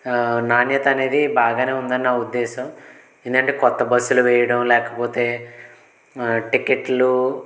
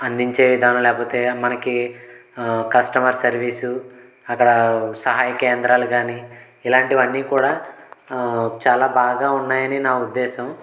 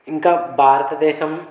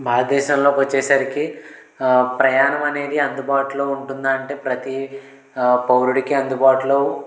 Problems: constant background noise